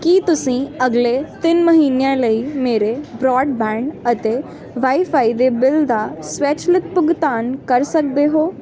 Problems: constant background noise